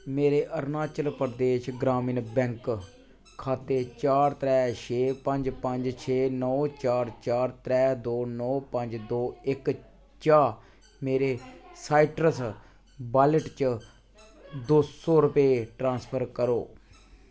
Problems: constant background noise